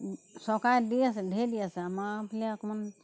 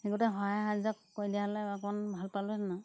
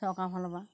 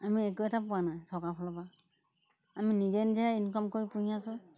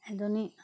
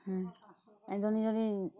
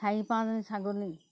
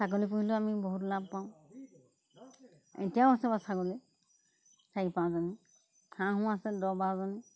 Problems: constant background noise